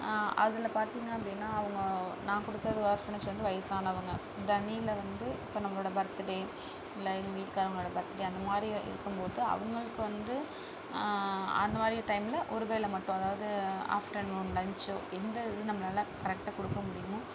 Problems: background sounds at intervals, low volume